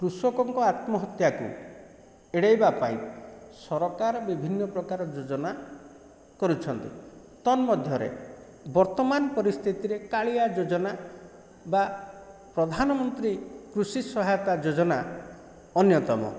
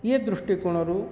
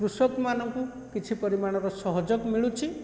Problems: constant background noise